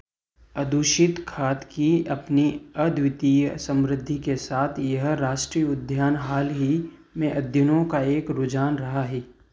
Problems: background sounds at intervals